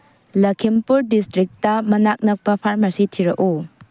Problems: low volume